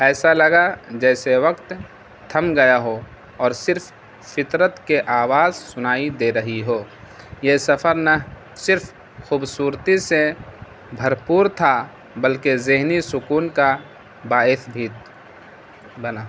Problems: constant background noise